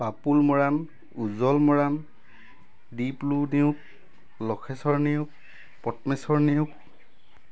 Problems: constant background noise